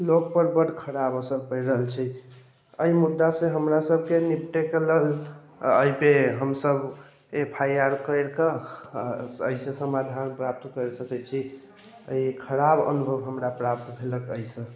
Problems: none marked